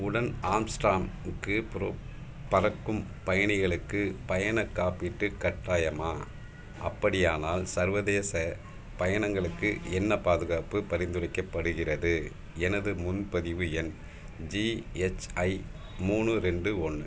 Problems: constant background noise